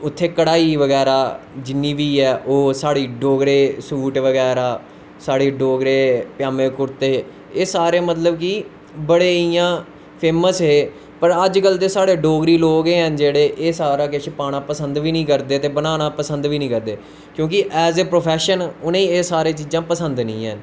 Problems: constant background noise